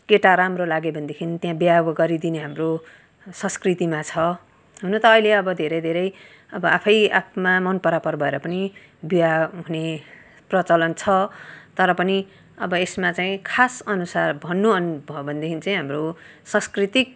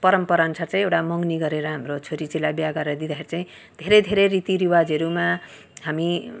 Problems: background sounds at intervals